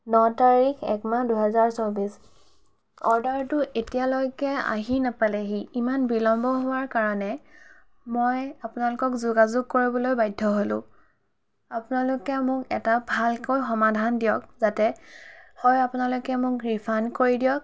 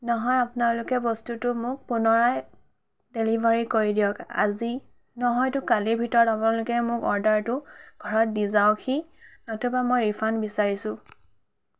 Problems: none marked